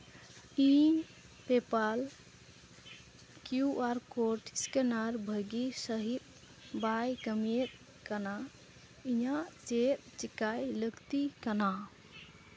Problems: background sounds at intervals